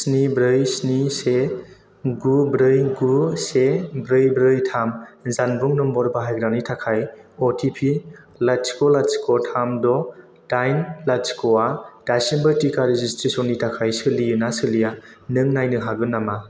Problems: constant background noise